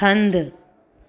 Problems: constant background noise, echo